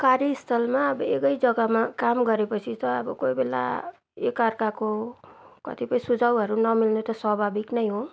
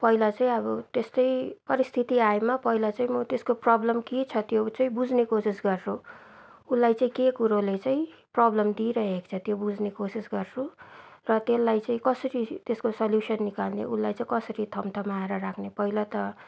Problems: none marked